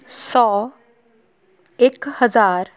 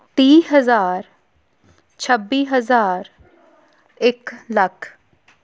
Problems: continuous background conversations